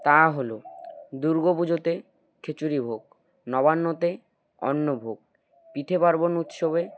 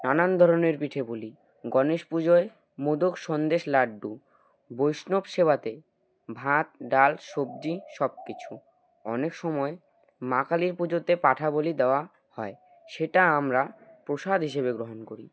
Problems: none marked